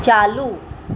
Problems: constant background noise